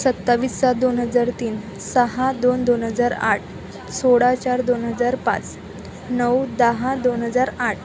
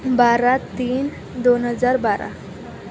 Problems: constant background noise, background conversations at intervals